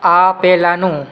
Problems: constant background noise